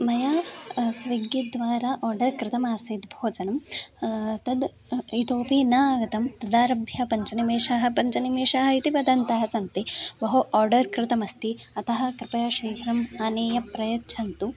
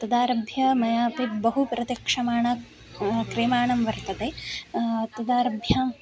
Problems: continuous background conversations